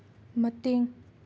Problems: none marked